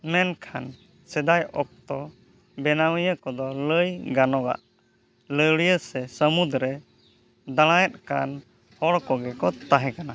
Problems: none marked